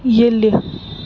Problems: constant background noise